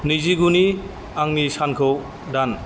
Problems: constant background noise